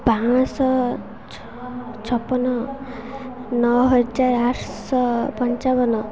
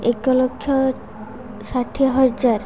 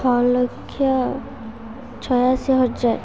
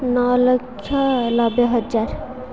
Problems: continuous background conversations